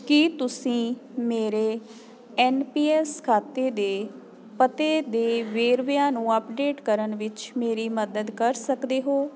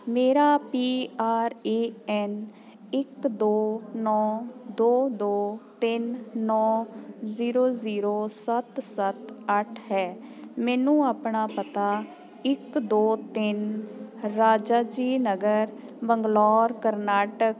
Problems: constant background noise